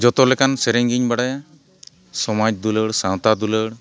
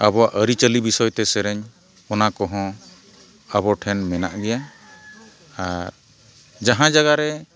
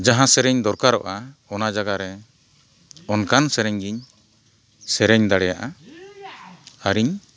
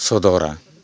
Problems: none marked